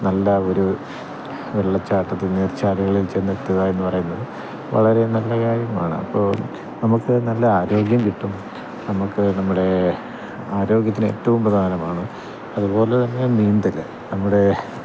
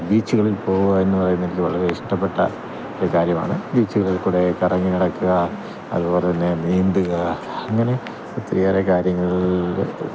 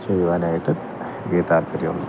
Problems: none marked